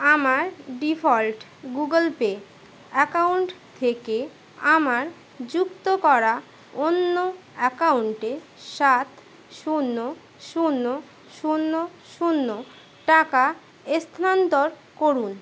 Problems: constant background noise